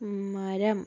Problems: background sounds at intervals, low volume